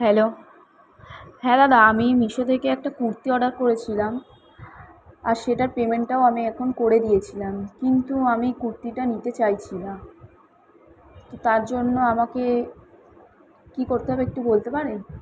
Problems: none marked